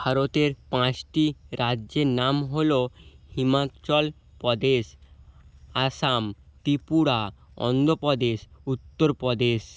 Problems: constant background noise